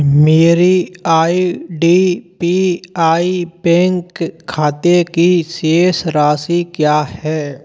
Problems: constant background noise